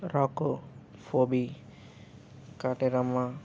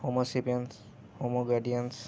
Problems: background sounds at intervals